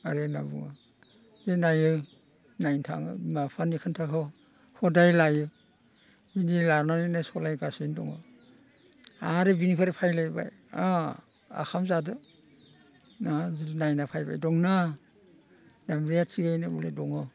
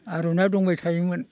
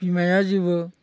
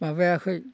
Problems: none marked